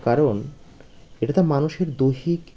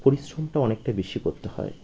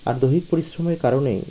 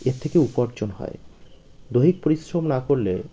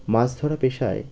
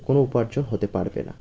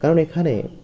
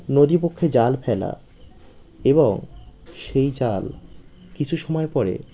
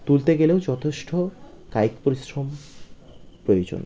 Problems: constant background noise